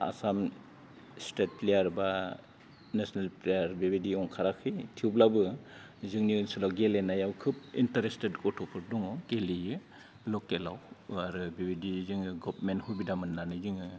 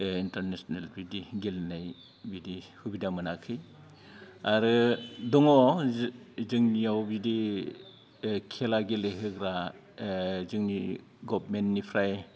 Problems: low volume